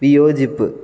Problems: none marked